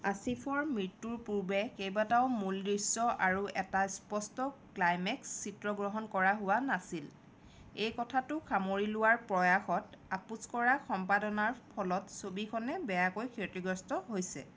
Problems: none marked